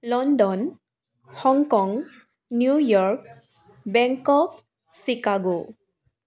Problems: continuous background conversations